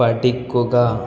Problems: background sounds at intervals